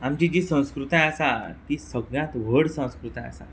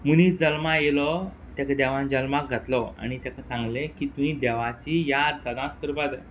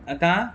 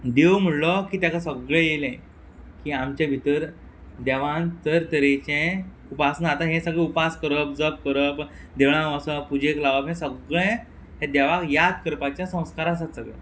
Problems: background sounds at intervals